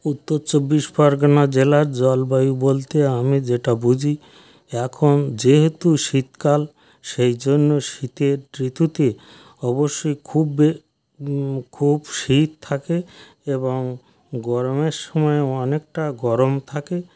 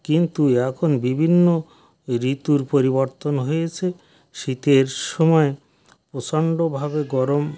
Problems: background sounds at intervals, background conversations at intervals